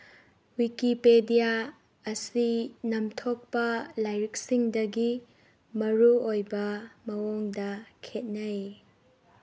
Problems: background sounds at intervals